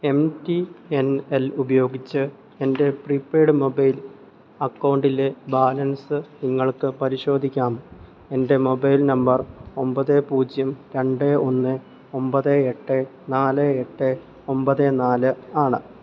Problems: low volume